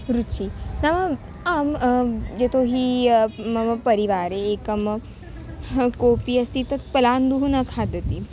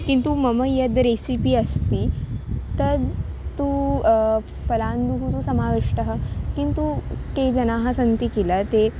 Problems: background sounds at intervals